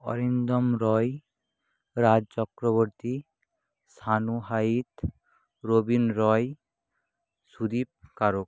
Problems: low volume